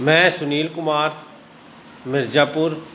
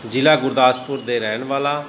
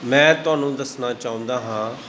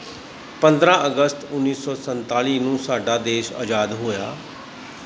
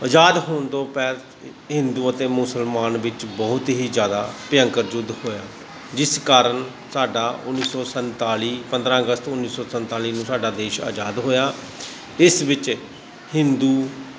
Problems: constant background noise, continuous background conversations